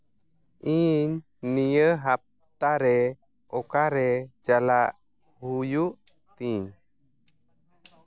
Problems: none marked